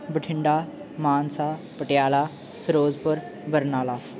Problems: background sounds at intervals